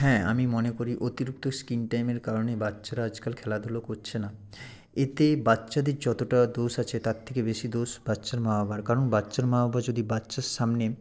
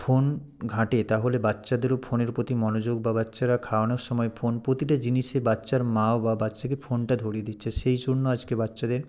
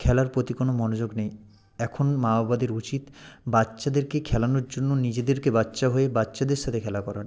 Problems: none marked